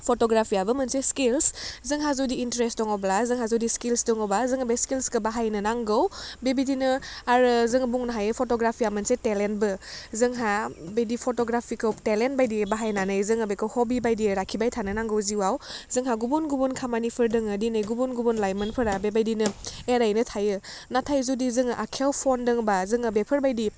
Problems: none marked